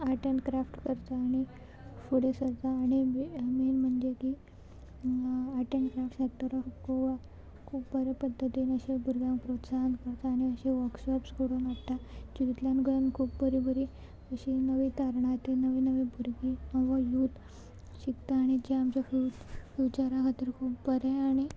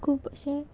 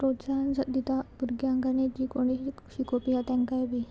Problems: background sounds at intervals